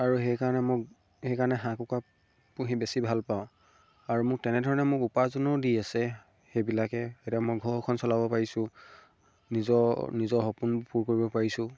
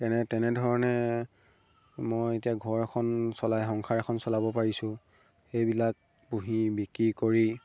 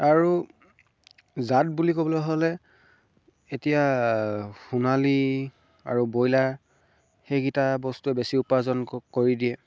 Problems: none marked